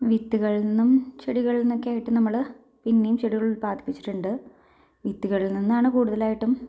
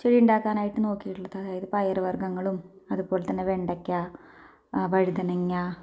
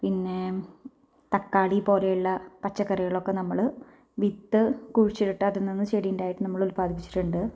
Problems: low volume